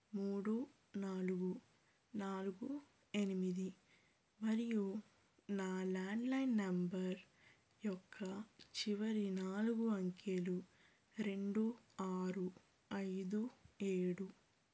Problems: low volume